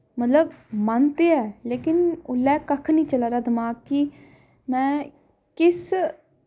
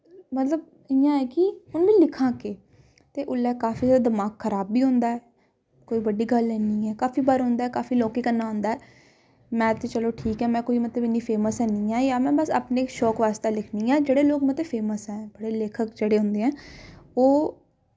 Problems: background sounds at intervals